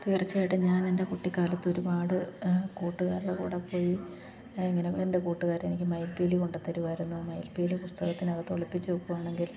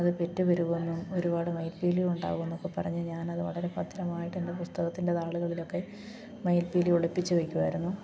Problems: none marked